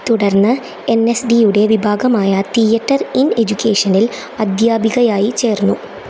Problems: constant background noise